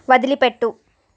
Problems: none marked